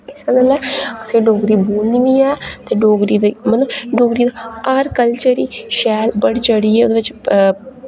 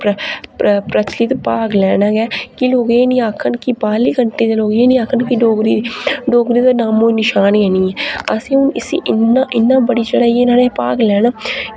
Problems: none marked